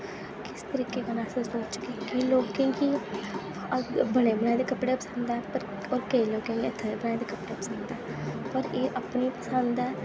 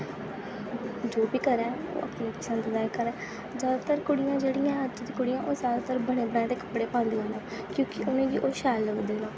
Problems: constant background noise